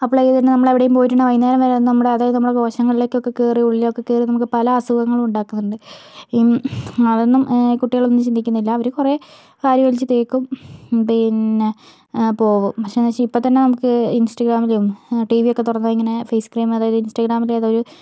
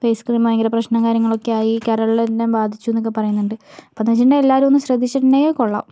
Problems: low volume